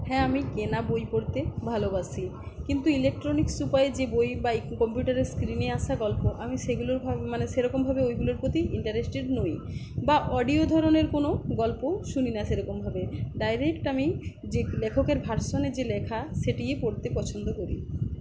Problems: none marked